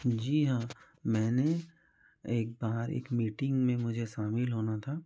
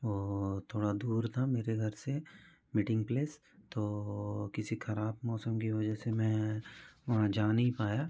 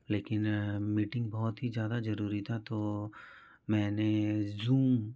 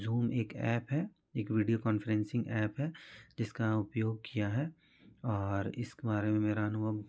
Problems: background conversations at intervals